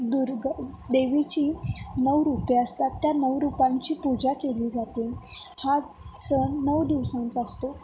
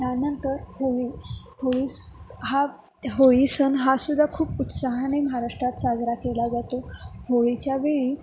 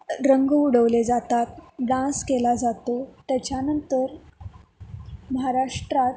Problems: none marked